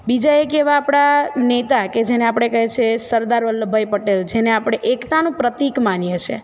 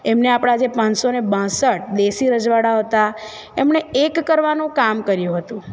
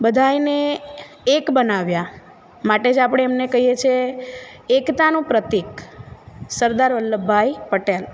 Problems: none marked